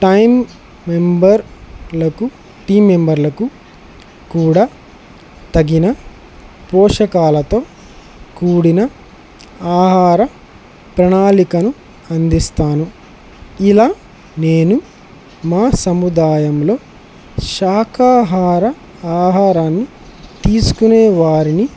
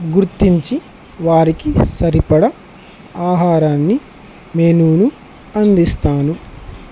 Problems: constant background noise